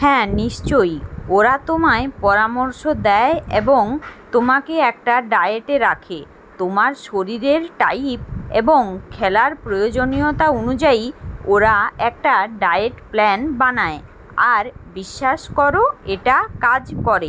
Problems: none marked